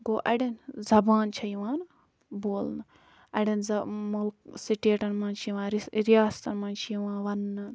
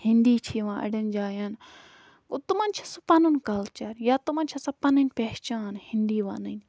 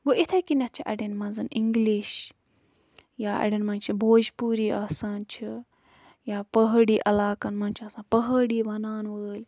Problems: background sounds at intervals